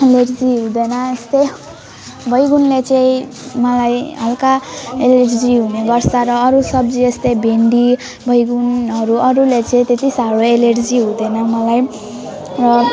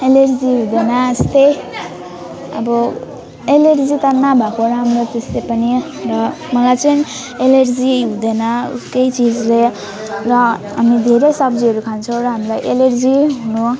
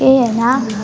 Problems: continuous background conversations